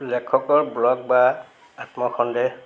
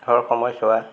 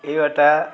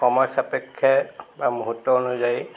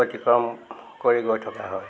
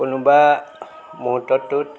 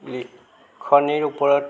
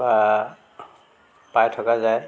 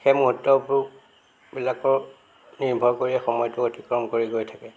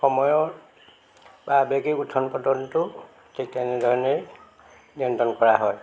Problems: constant background noise, background conversations at intervals